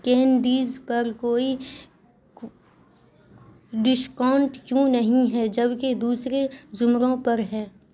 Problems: constant background noise